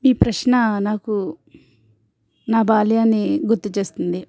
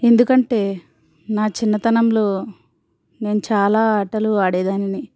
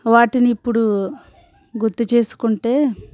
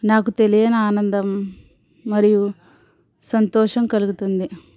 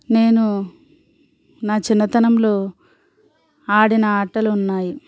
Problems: background sounds at intervals